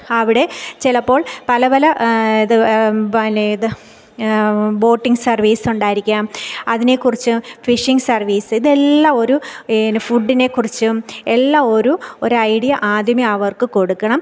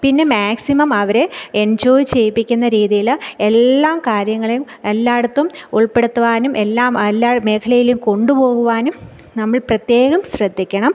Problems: none marked